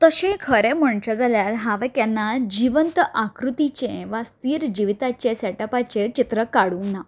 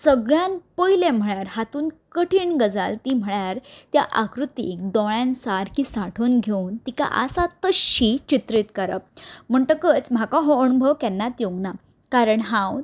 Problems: background sounds at intervals